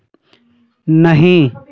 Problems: none marked